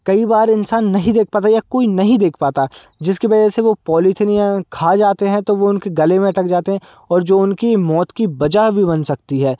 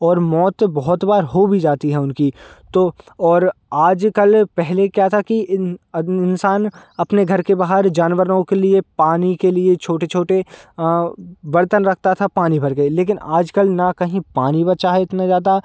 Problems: constant background noise